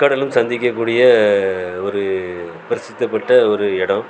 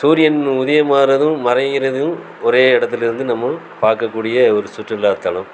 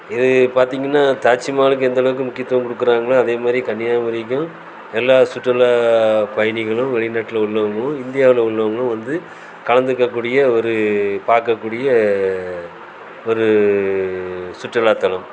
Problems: constant background noise